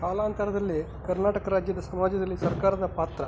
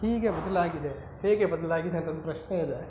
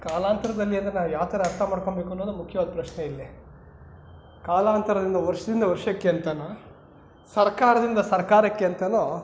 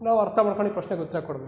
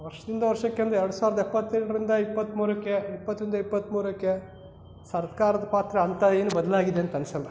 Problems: background sounds at intervals